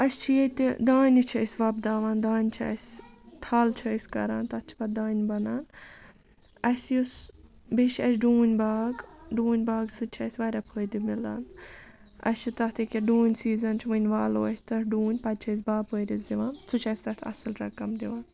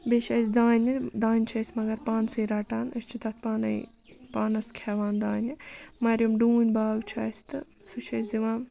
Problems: background sounds at intervals